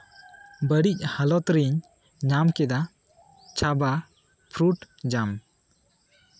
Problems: none marked